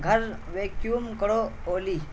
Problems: constant background noise, low volume